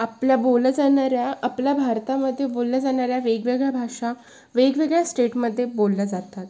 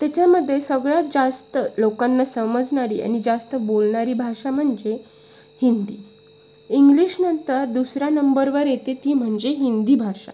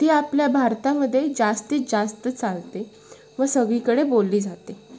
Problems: constant background noise, background conversations at intervals